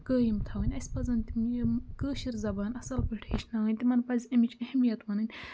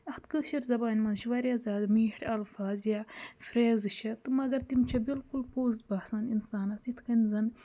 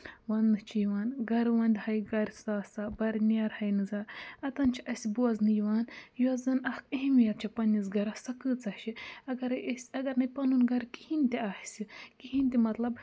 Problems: background sounds at intervals